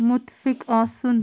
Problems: constant background noise